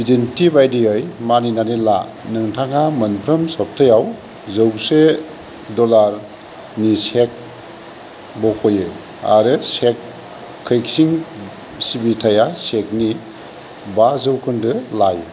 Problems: none marked